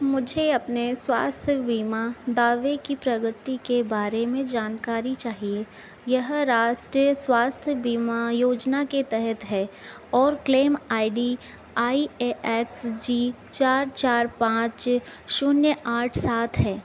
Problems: none marked